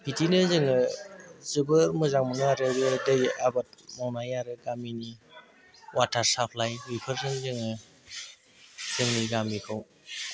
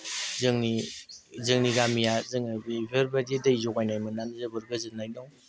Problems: constant background noise